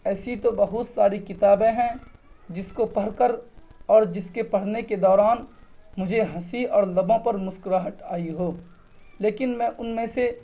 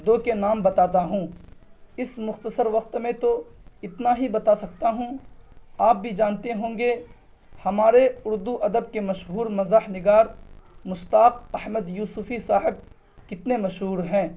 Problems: none marked